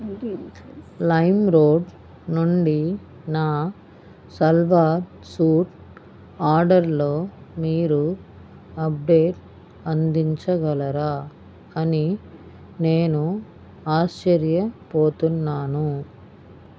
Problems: none marked